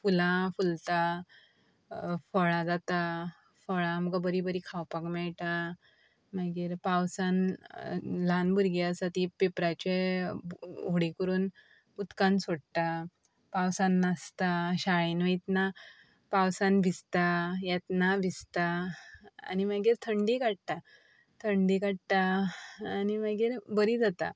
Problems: none marked